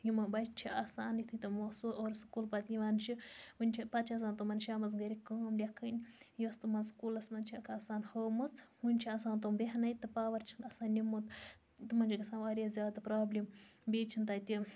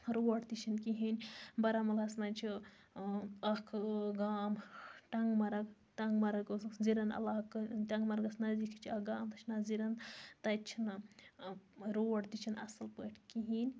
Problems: constant background noise